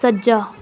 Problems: background conversations at intervals